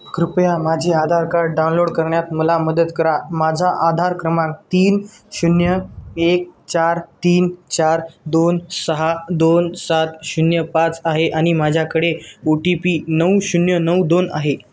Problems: none marked